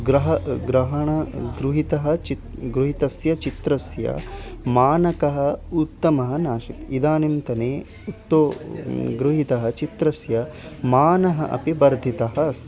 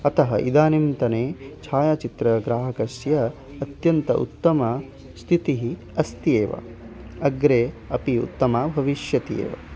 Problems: constant background noise, continuous background conversations